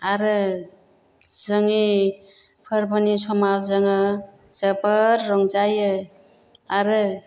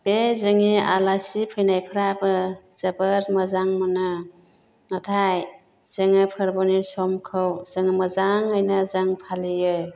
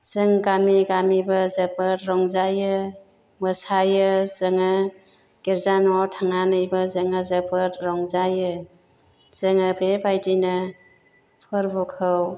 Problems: none marked